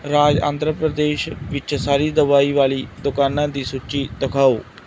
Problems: none marked